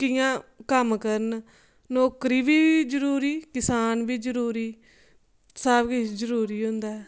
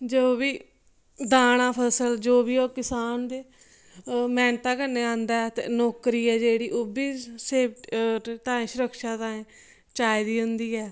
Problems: none marked